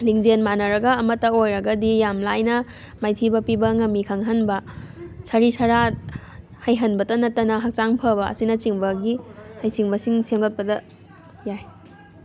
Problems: constant background noise